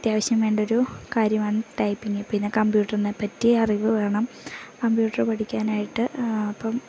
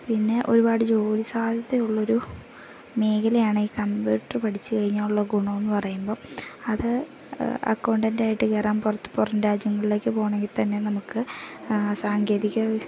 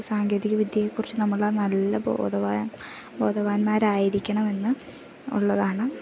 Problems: none marked